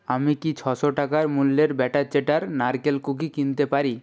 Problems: constant background noise